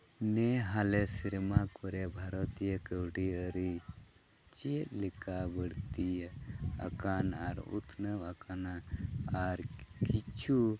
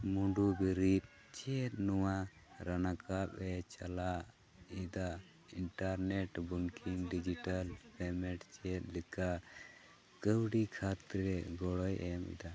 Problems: constant background noise, low volume